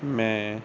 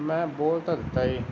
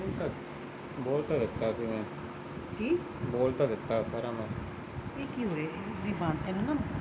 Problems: background conversations at intervals